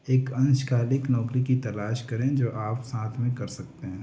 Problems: none marked